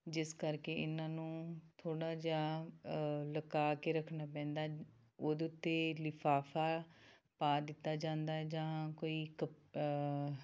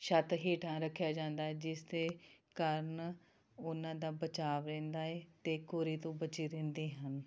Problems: none marked